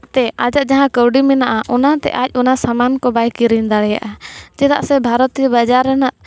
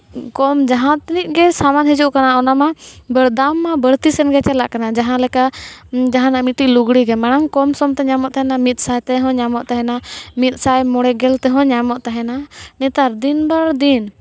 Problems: none marked